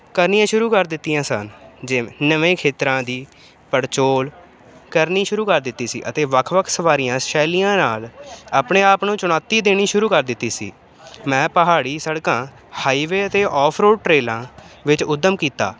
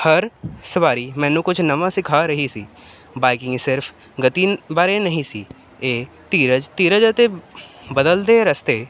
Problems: none marked